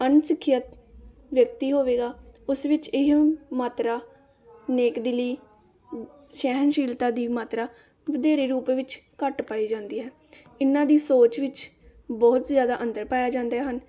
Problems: none marked